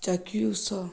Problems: constant background noise